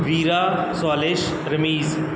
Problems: background sounds at intervals